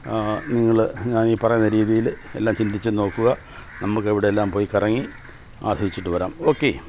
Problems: constant background noise